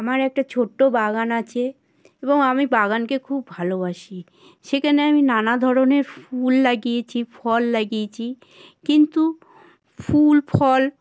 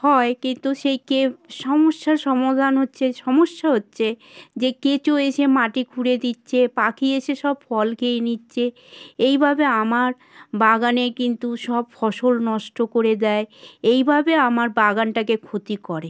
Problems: constant background noise